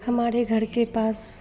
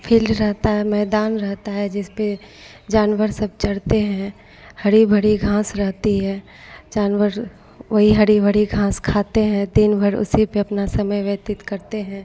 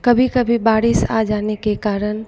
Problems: constant background noise